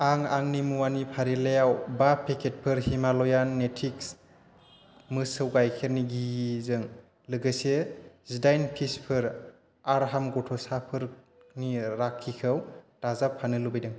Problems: constant background noise